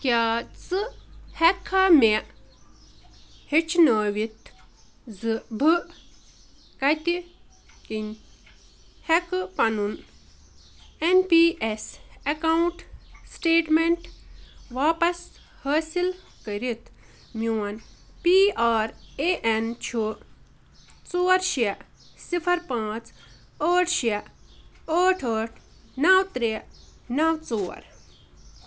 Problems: none marked